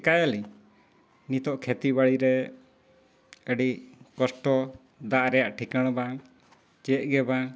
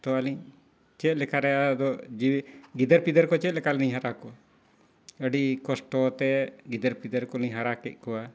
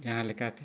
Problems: none marked